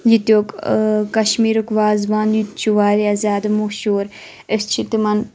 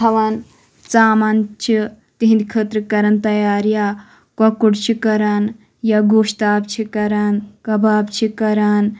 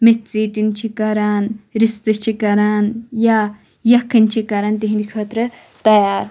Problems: none marked